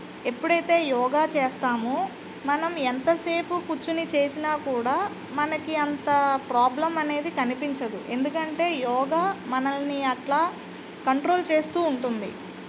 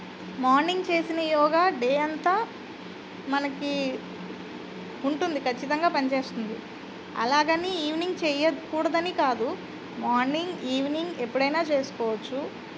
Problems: constant background noise